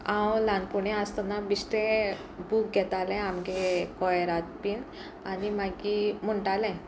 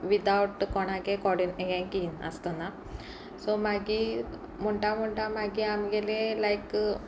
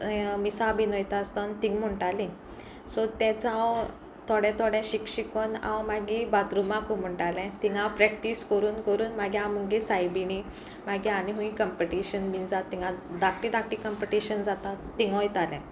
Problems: constant background noise, background conversations at intervals